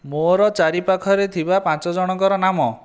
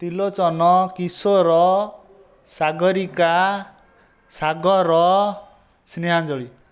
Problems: constant background noise